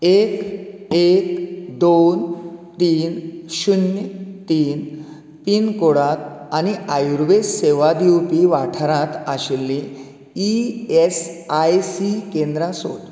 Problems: none marked